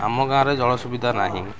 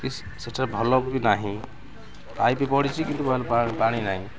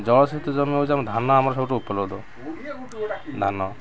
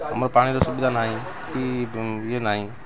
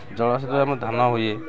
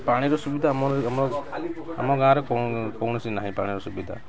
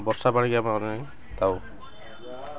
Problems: constant background noise, continuous background conversations